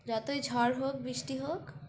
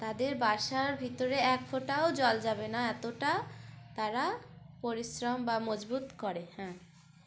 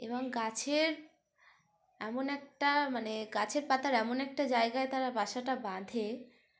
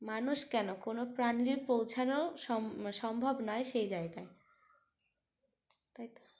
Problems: background sounds at intervals